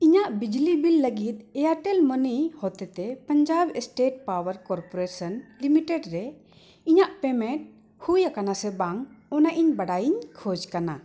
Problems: echo